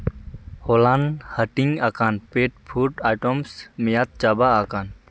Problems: constant background noise